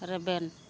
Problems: constant background noise